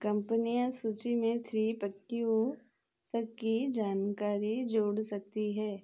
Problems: none marked